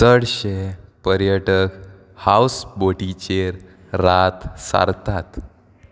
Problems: none marked